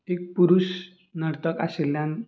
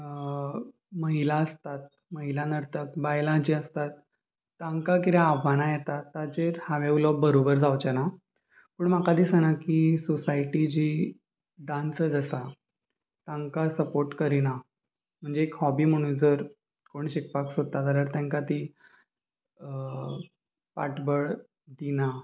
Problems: constant background noise, background conversations at intervals